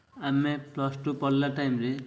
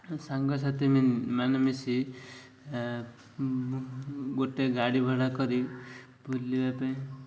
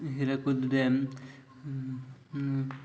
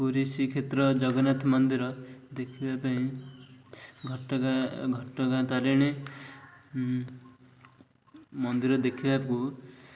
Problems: none marked